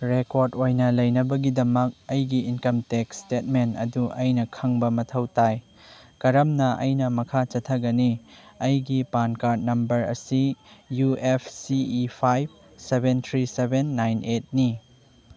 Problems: none marked